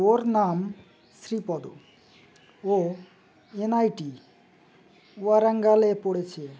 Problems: background sounds at intervals